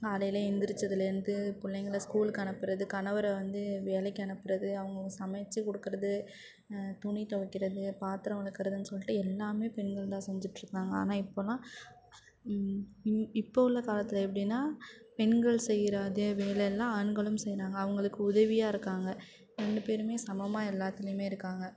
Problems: background sounds at intervals